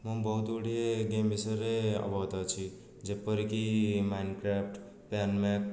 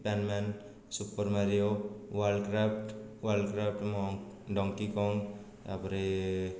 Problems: low volume